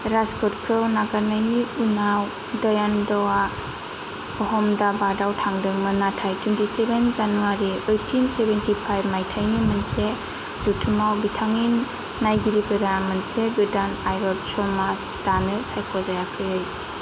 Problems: constant background noise